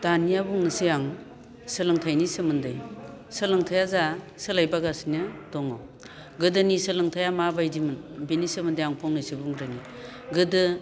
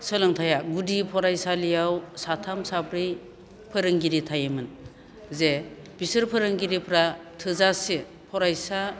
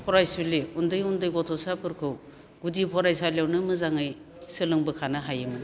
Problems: none marked